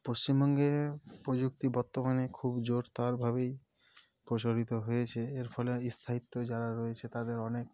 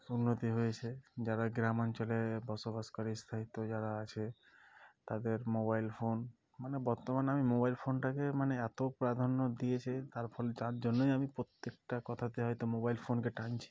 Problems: none marked